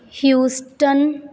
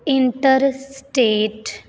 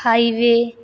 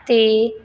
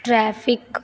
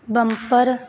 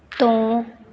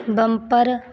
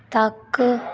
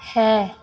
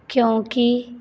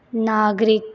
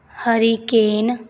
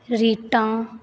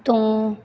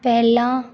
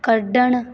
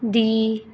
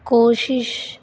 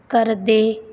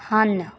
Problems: constant background noise